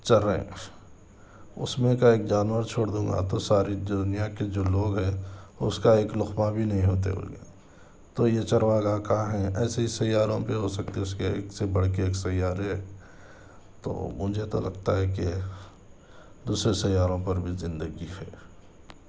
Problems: none marked